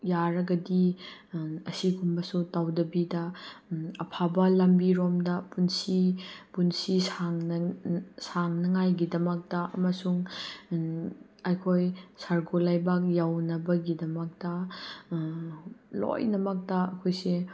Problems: none marked